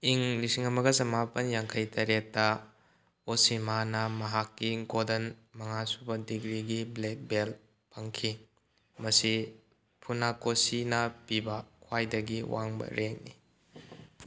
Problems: none marked